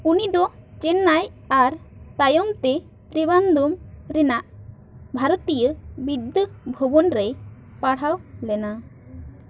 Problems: constant background noise